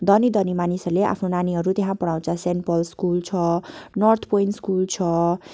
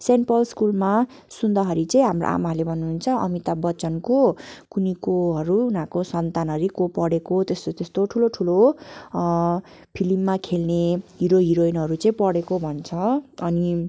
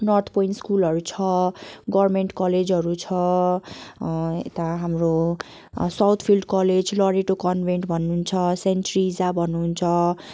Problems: background sounds at intervals